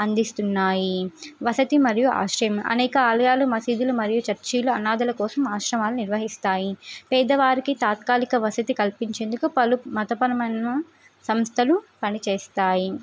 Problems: none marked